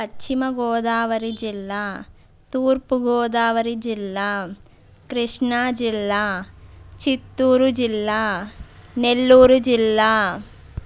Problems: background sounds at intervals